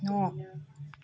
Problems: low volume